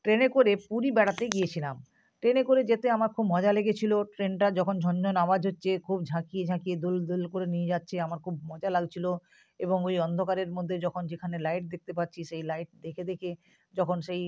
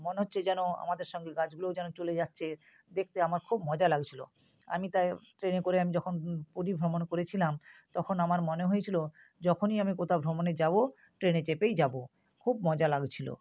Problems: background sounds at intervals